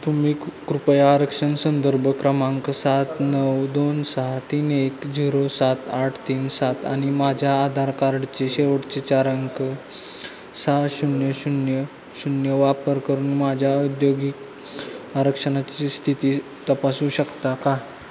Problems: constant background noise, background conversations at intervals